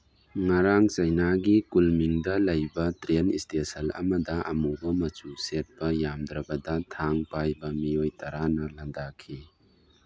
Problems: background sounds at intervals